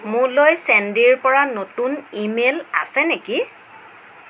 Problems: background sounds at intervals, low volume